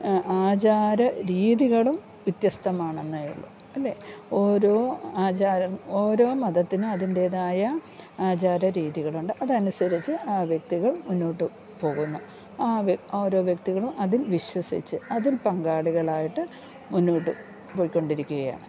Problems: low volume